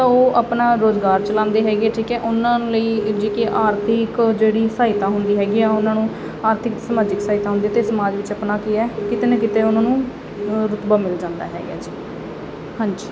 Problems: constant background noise